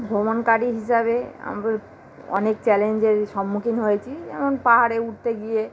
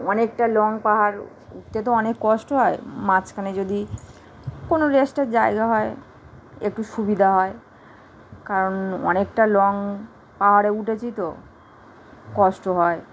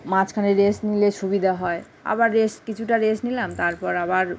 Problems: constant background noise